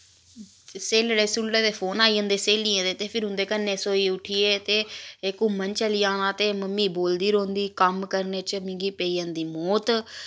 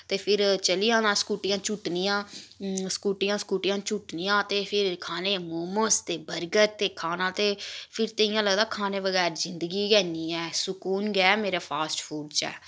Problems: constant background noise